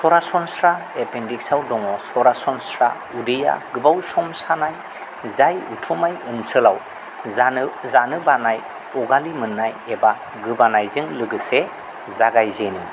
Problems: none marked